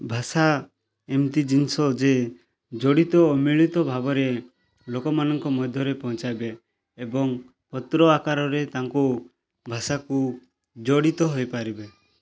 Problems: none marked